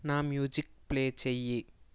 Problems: none marked